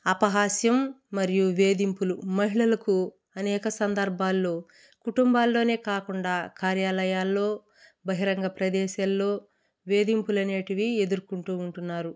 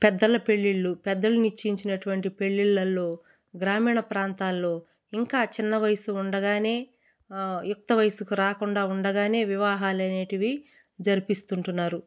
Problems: none marked